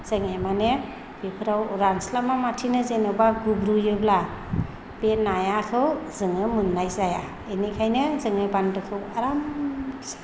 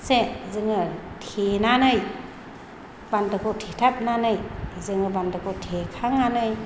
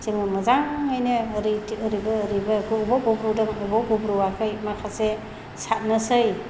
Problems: low volume